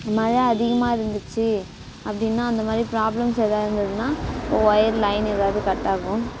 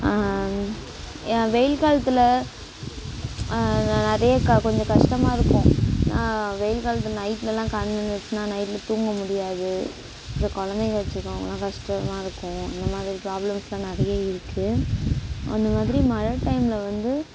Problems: constant background noise